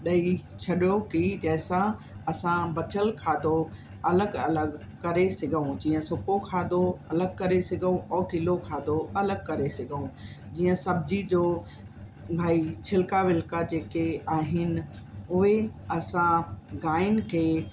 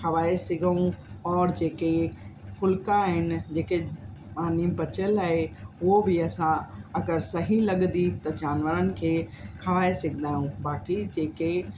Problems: constant background noise